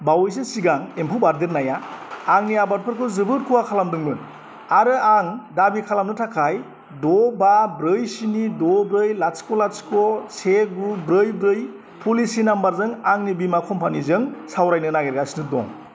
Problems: constant background noise